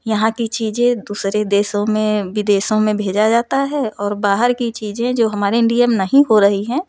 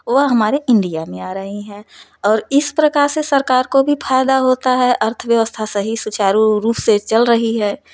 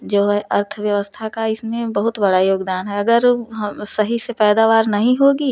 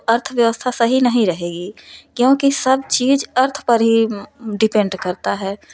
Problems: none marked